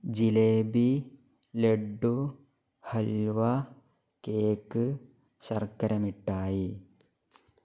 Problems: none marked